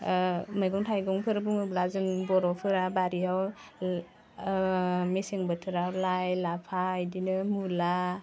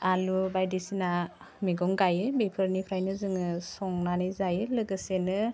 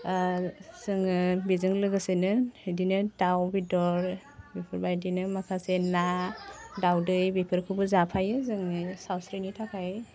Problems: none marked